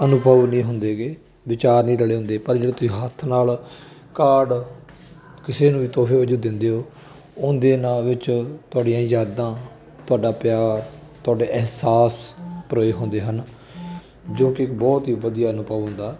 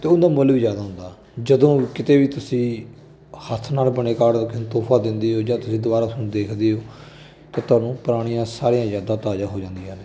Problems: none marked